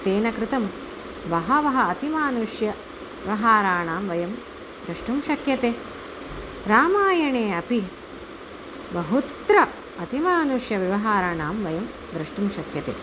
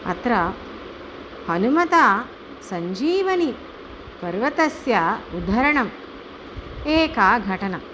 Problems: none marked